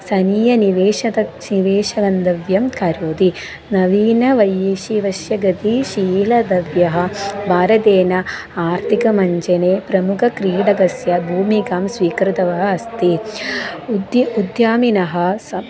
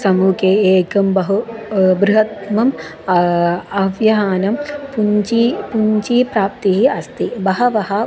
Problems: none marked